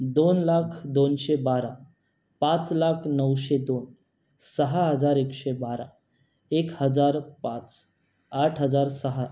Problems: none marked